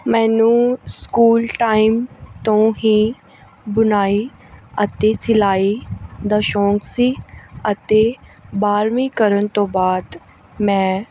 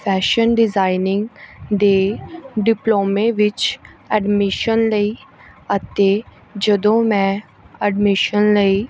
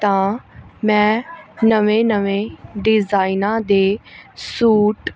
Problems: none marked